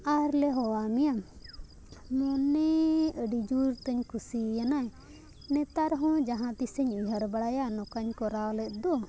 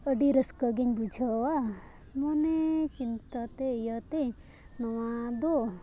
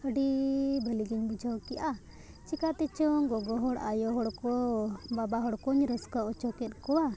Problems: background sounds at intervals, background conversations at intervals